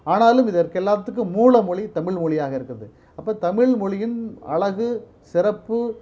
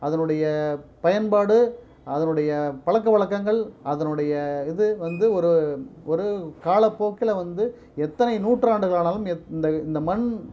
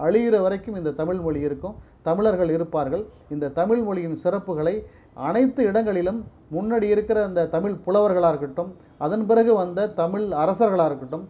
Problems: low volume